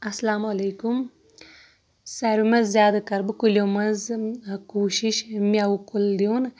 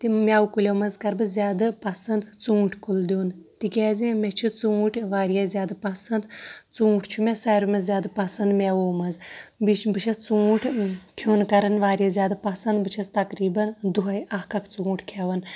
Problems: background sounds at intervals